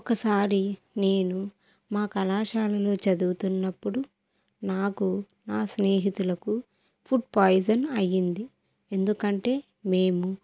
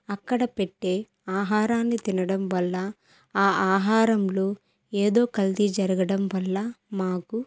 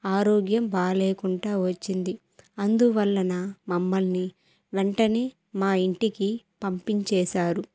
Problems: none marked